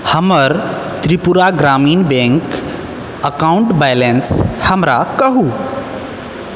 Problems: constant background noise